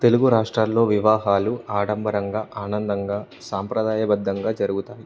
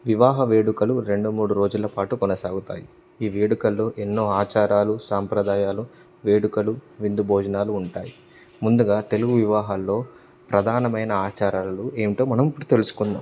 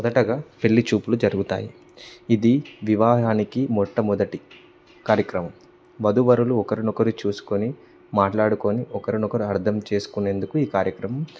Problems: none marked